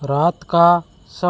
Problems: constant background noise